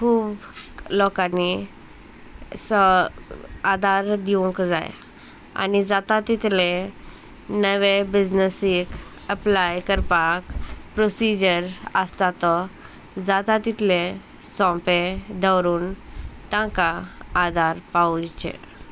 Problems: constant background noise, background conversations at intervals